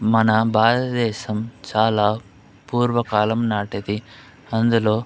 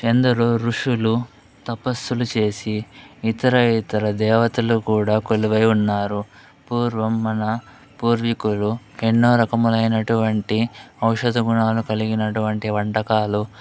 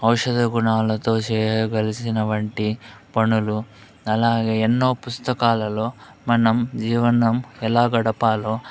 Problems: none marked